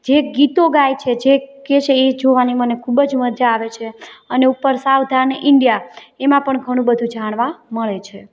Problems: background sounds at intervals, background conversations at intervals